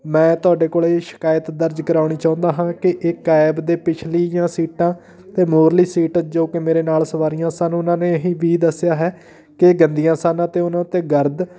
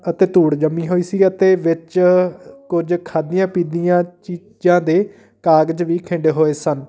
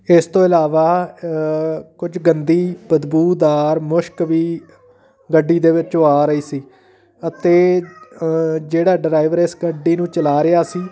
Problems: background sounds at intervals, continuous background conversations